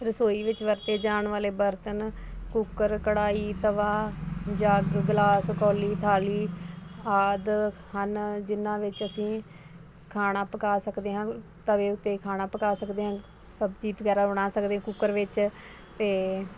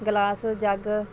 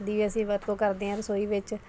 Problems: constant background noise, background conversations at intervals